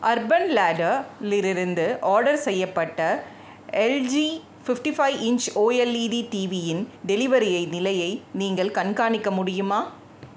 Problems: background sounds at intervals